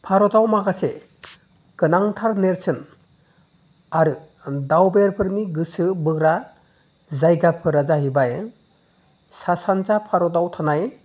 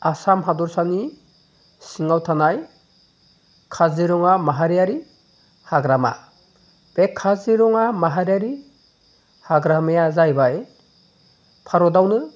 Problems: none marked